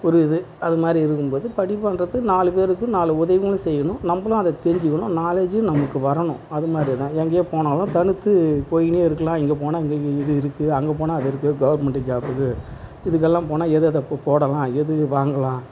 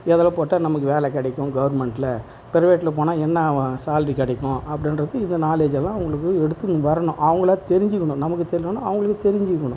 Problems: none marked